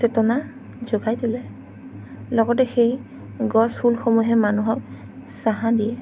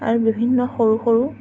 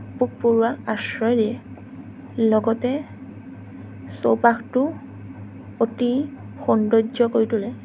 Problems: none marked